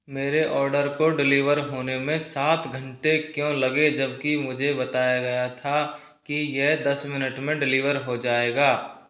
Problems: none marked